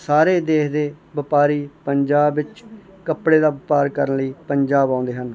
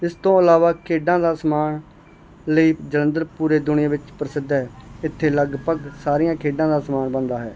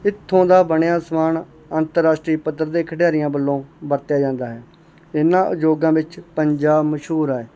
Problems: background sounds at intervals